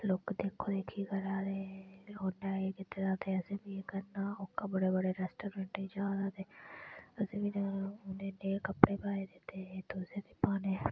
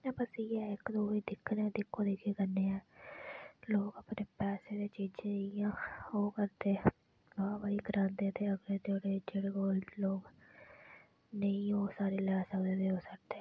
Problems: low volume